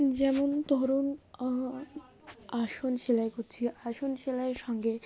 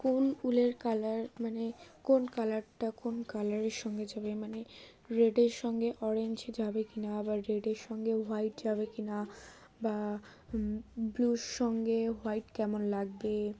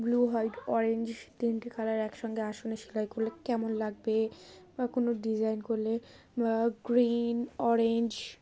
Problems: background sounds at intervals